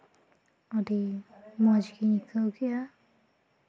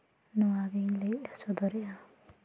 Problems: continuous background conversations